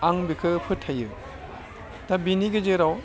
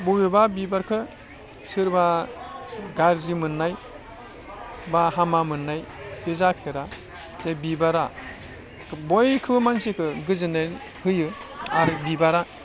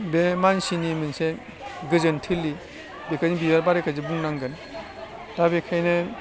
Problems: constant background noise, low volume